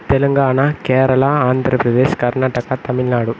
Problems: constant background noise